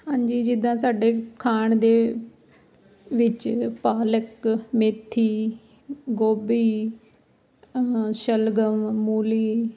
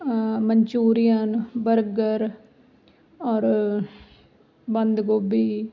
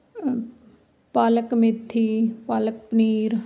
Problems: constant background noise